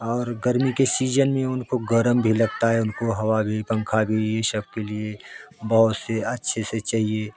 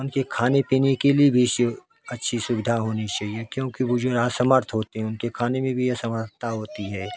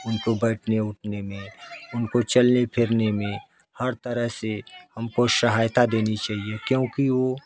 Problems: background sounds at intervals, background conversations at intervals